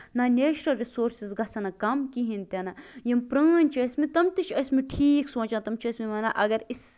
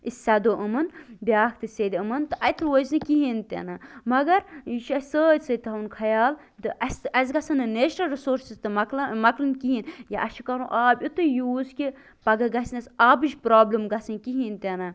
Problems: constant background noise